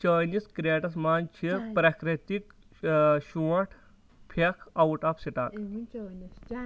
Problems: continuous background conversations